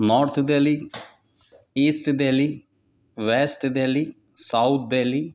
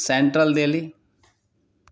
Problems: none marked